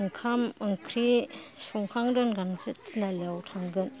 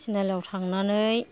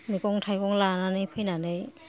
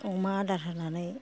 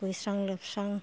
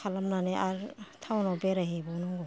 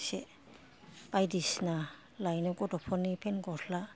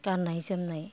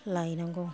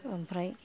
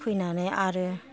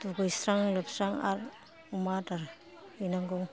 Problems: low volume